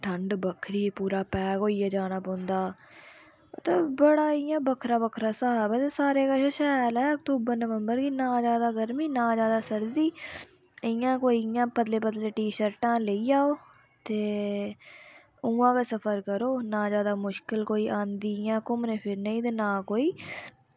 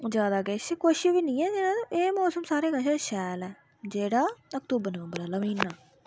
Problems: none marked